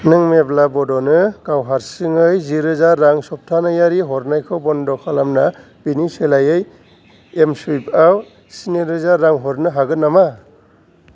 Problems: background sounds at intervals